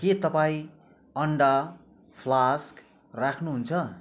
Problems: none marked